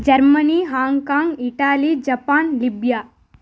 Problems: none marked